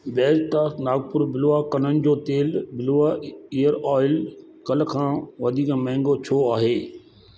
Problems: constant background noise, echo